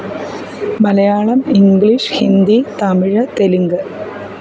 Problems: none marked